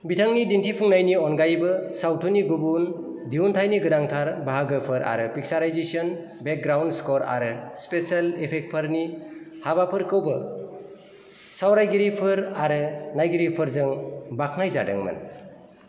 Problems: constant background noise